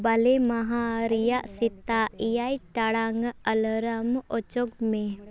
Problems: background conversations at intervals